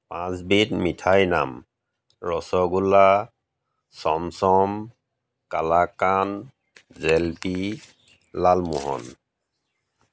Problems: none marked